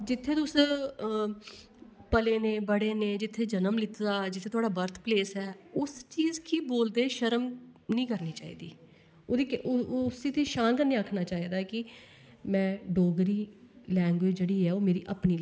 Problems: background sounds at intervals